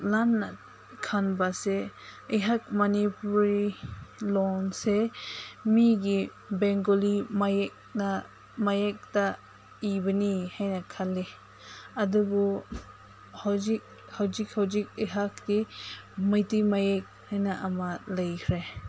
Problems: constant background noise